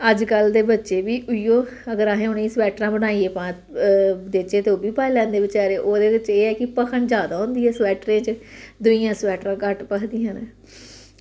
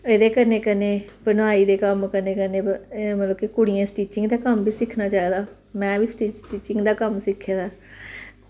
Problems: constant background noise